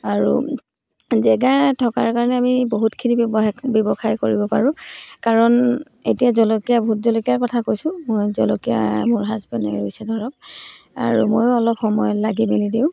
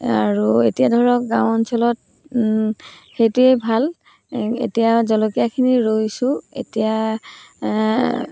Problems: background sounds at intervals